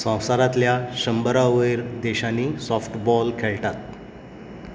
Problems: background sounds at intervals